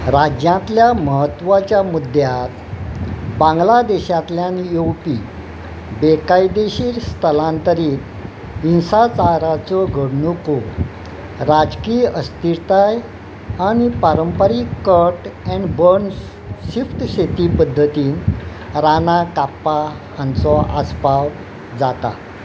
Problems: none marked